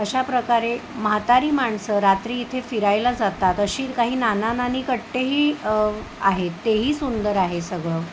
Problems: constant background noise